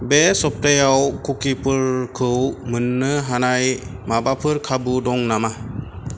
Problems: background sounds at intervals